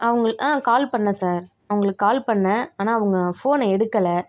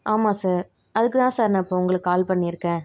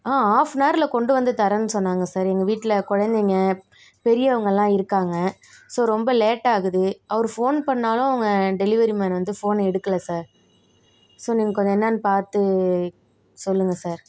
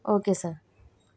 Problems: background sounds at intervals